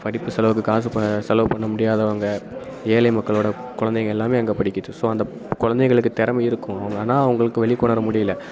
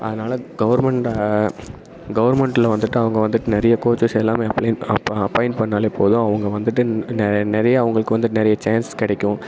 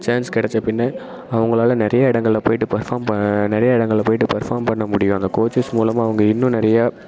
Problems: constant background noise